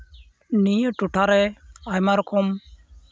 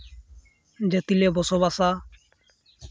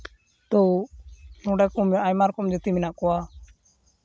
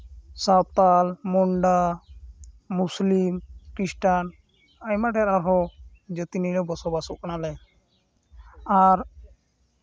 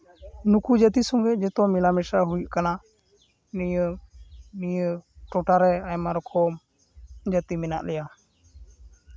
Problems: constant background noise